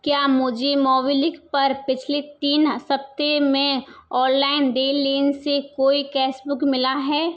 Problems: background sounds at intervals